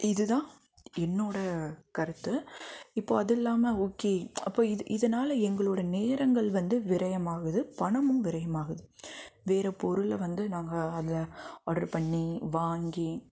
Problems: background sounds at intervals